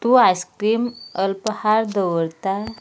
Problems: constant background noise